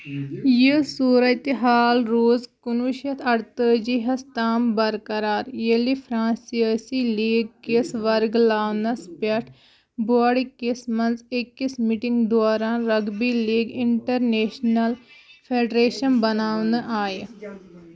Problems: background sounds at intervals, background conversations at intervals